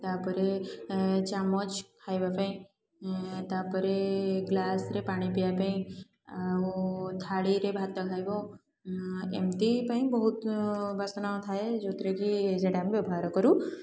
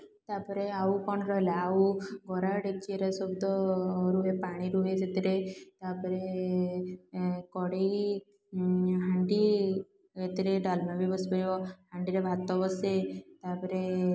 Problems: background sounds at intervals, continuous background conversations